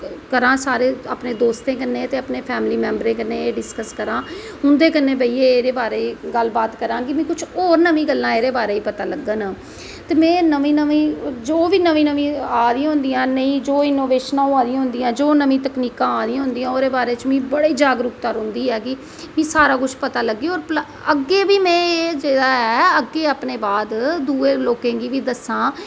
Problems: none marked